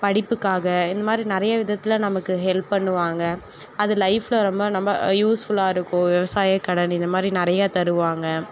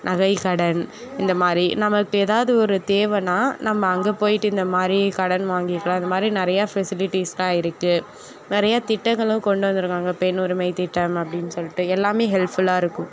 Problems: background conversations at intervals